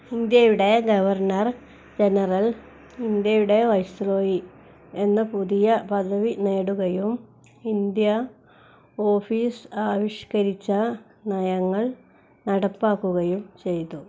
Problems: none marked